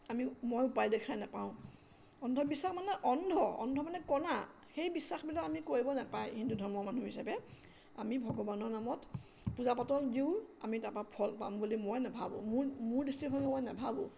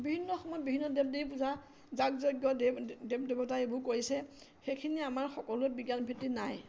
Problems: constant background noise